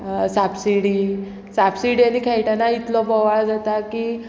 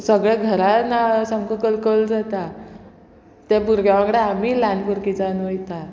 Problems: none marked